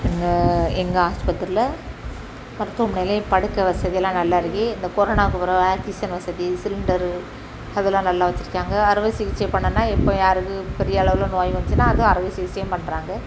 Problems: none marked